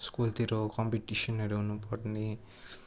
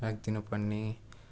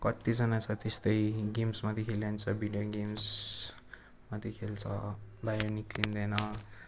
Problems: constant background noise